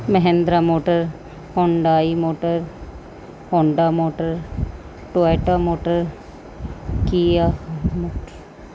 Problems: background sounds at intervals